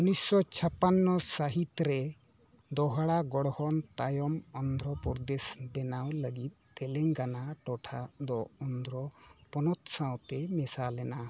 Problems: background sounds at intervals